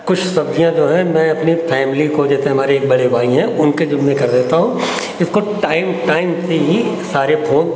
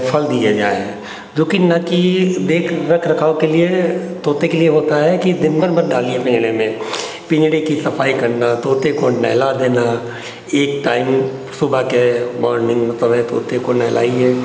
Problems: constant background noise